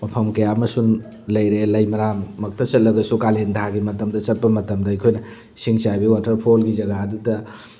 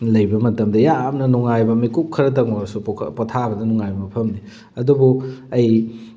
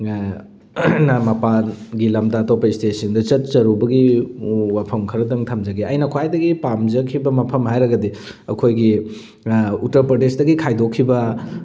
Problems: background sounds at intervals